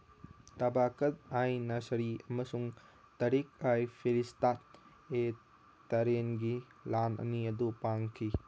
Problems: background sounds at intervals